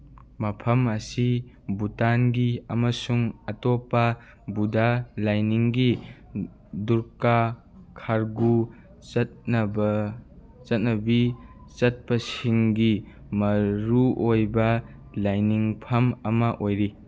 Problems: none marked